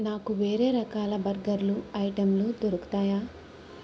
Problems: constant background noise